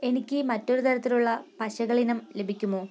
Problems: none marked